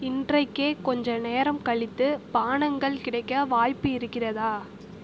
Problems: constant background noise